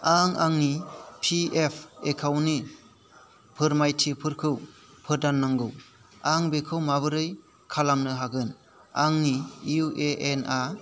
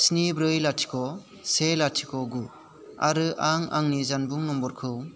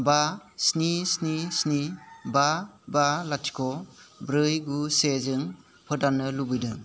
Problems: constant background noise